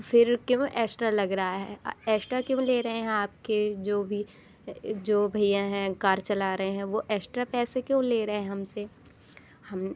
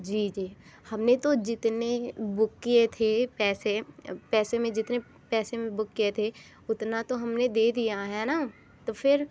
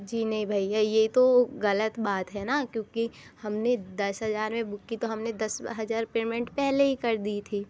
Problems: background sounds at intervals